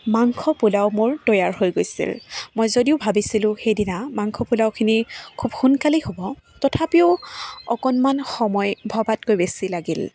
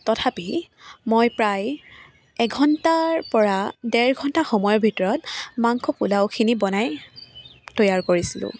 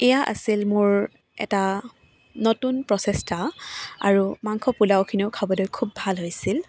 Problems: none marked